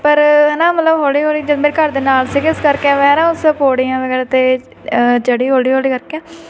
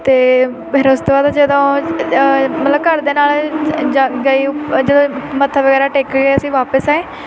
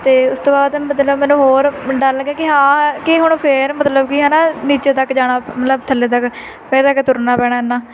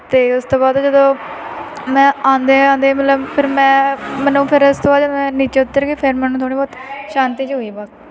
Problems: constant background noise, continuous background conversations